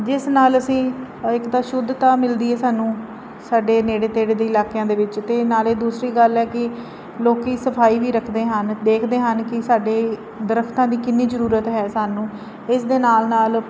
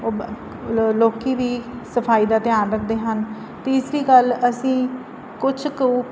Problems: none marked